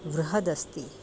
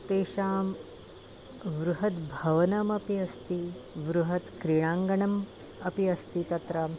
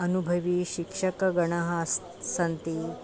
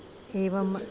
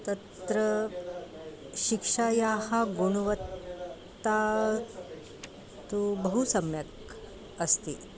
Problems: none marked